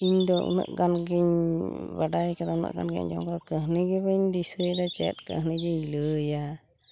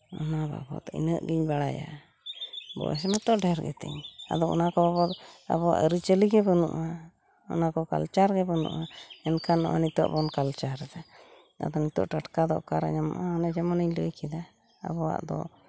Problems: background sounds at intervals, background conversations at intervals